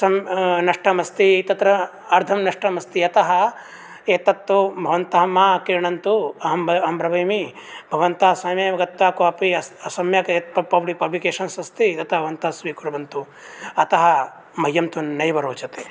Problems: none marked